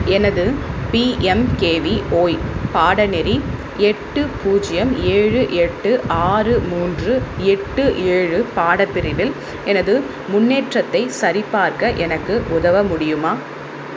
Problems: constant background noise